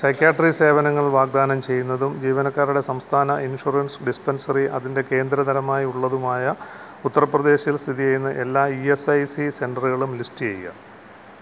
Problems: none marked